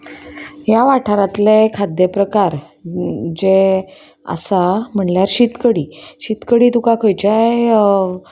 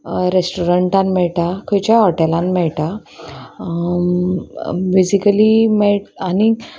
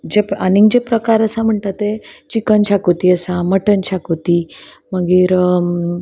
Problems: constant background noise